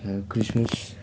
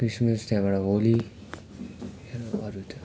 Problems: background sounds at intervals